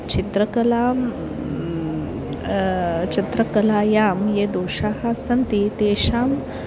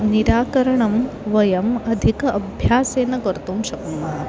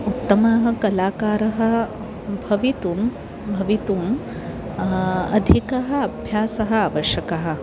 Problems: constant background noise, continuous background conversations